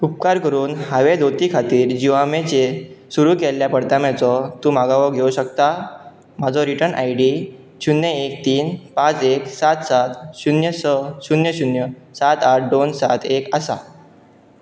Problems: background sounds at intervals